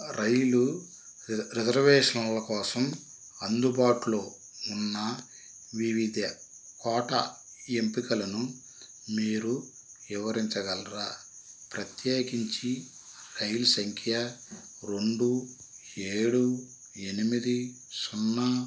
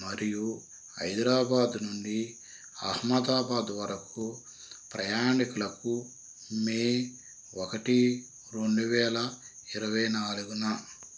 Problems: background sounds at intervals